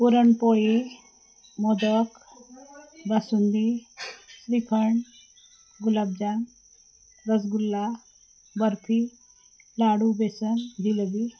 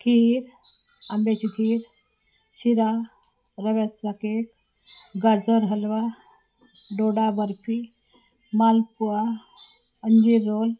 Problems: constant background noise, background conversations at intervals, low volume